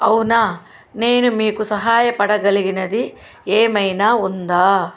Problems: constant background noise